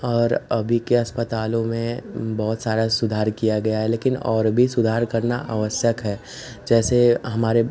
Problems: constant background noise